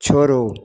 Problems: none marked